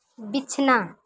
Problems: constant background noise